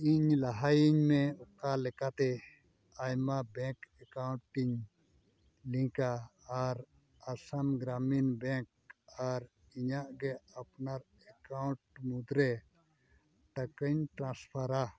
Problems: none marked